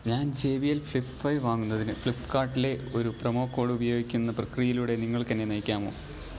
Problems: background sounds at intervals, low volume